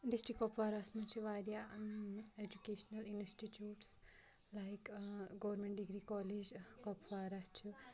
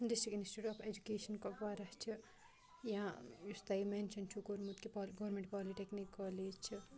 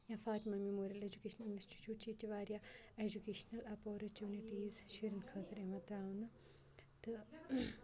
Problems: background sounds at intervals, low volume